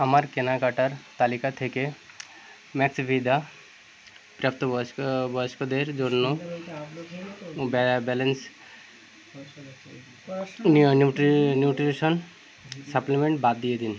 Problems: constant background noise, continuous background conversations